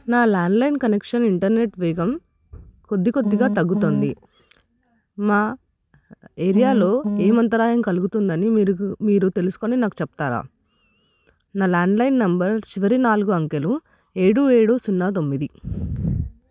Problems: constant background noise